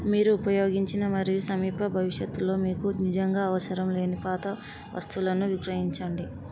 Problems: background conversations at intervals